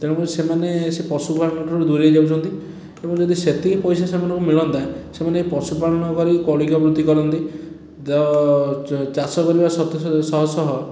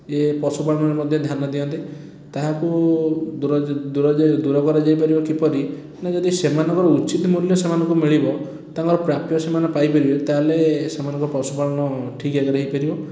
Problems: background sounds at intervals